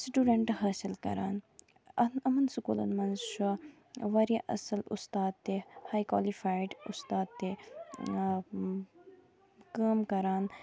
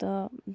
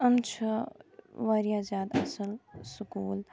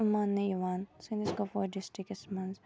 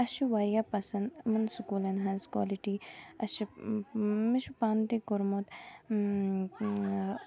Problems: constant background noise, continuous background conversations